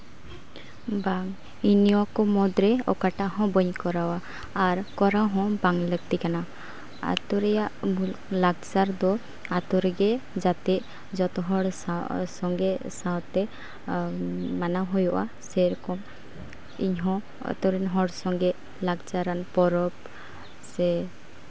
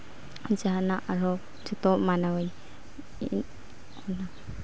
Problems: constant background noise